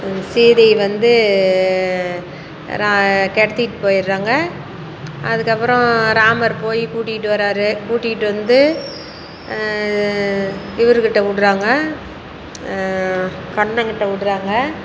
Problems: none marked